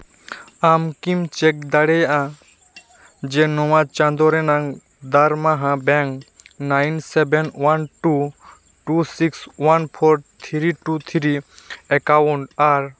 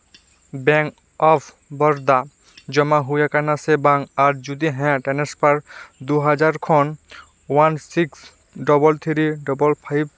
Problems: none marked